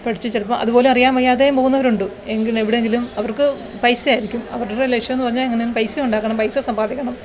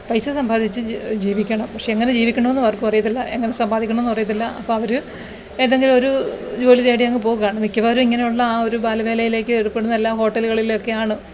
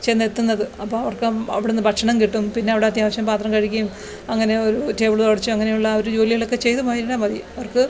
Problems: background sounds at intervals